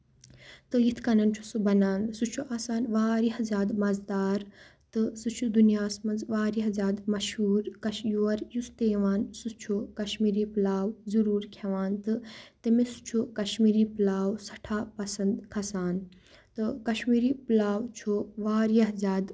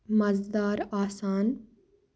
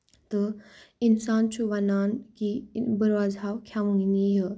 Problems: none marked